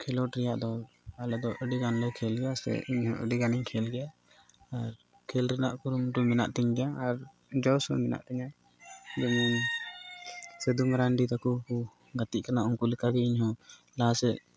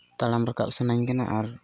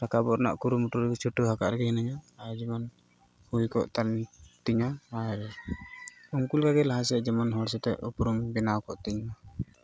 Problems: background sounds at intervals